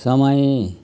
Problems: none marked